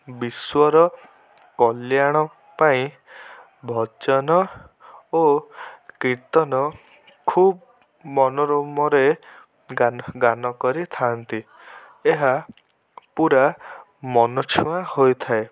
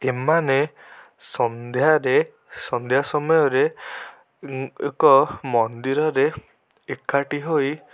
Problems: none marked